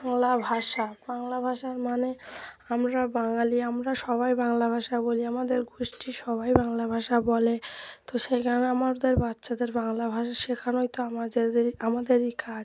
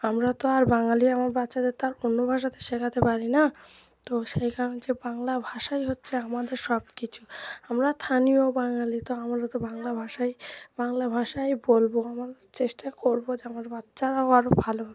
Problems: constant background noise, continuous background conversations